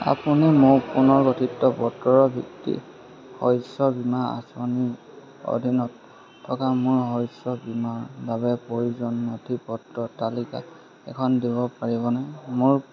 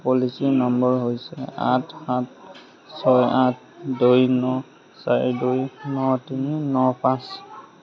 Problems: constant background noise, background conversations at intervals